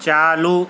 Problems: constant background noise